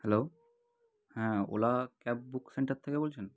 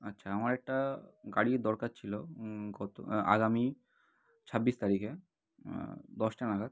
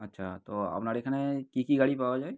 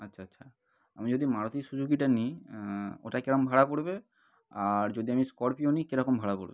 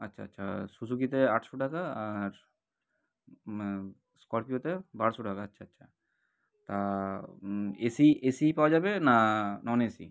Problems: none marked